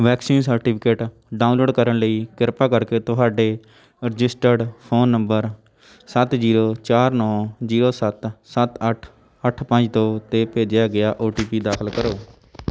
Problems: background sounds at intervals